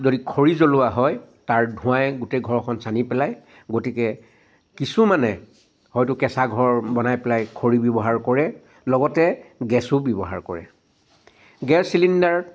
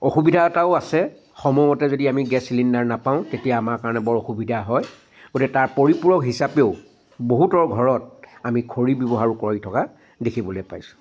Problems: constant background noise